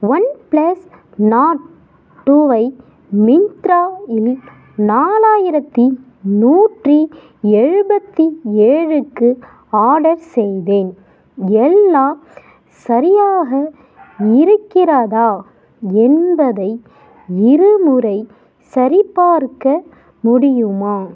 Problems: background sounds at intervals